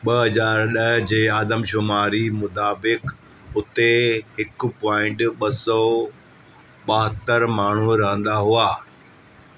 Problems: constant background noise